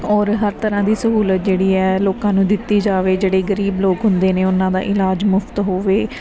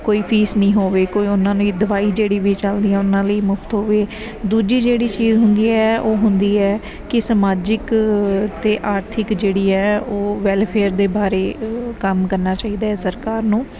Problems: background sounds at intervals